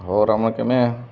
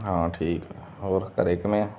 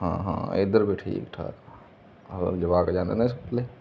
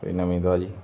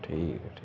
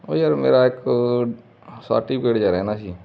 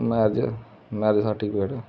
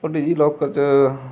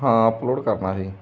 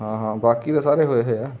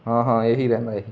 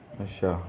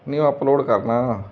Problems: constant background noise